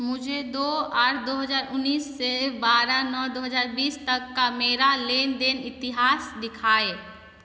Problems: constant background noise, echo